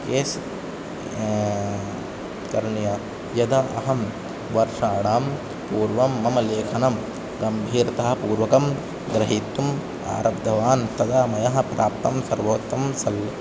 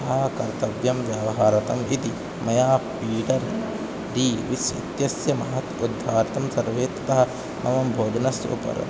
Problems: constant background noise